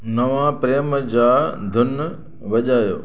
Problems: constant background noise, echo